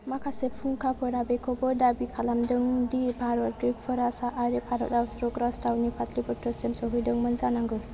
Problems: low volume